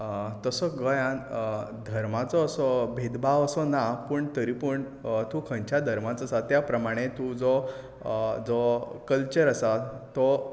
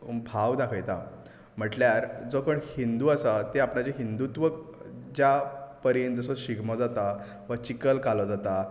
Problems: background sounds at intervals